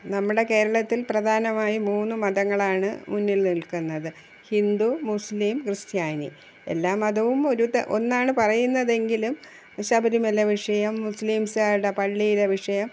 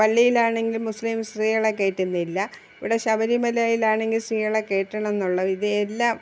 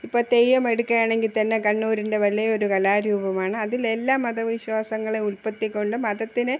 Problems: background sounds at intervals